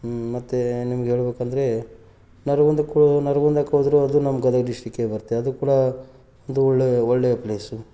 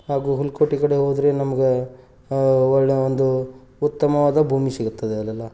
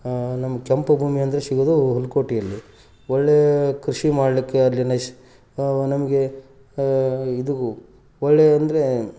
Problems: background sounds at intervals